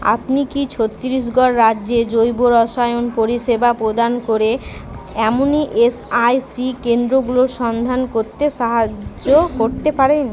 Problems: none marked